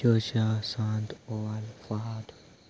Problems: constant background noise